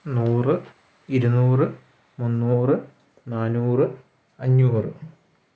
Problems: none marked